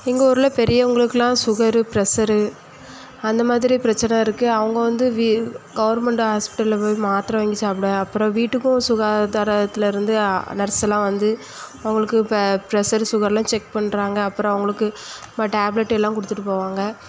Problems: echo